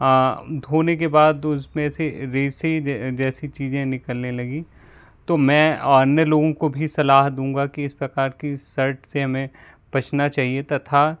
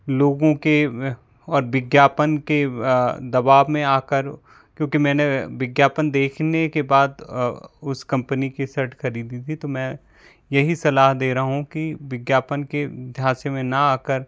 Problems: none marked